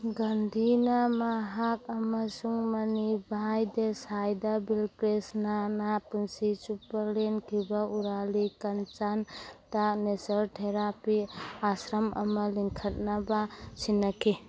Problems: constant background noise